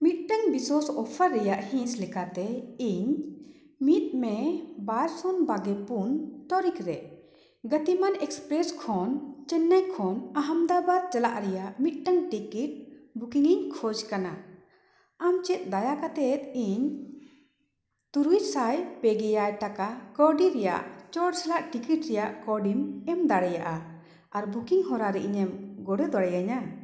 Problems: echo